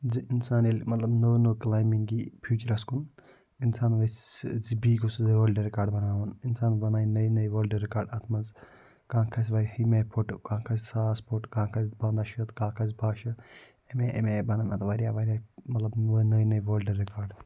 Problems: low volume